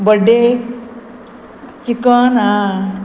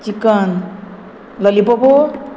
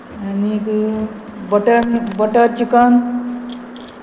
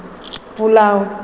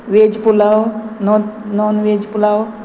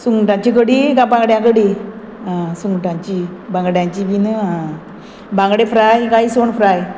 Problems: background sounds at intervals